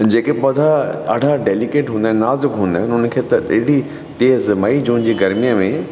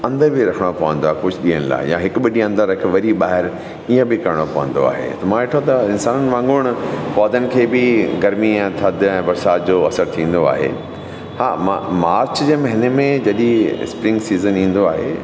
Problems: constant background noise